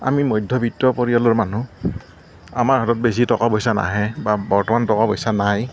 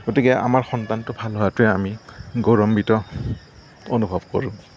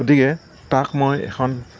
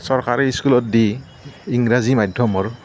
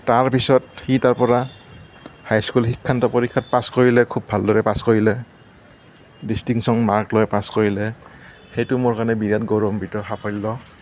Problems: none marked